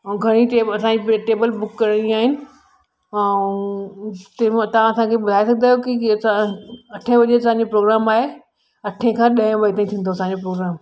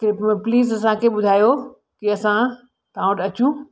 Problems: constant background noise, echo